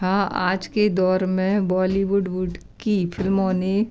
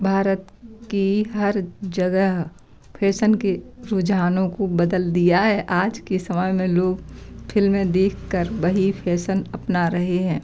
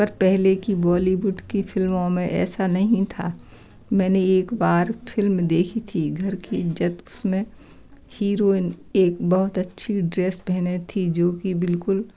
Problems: background sounds at intervals, background conversations at intervals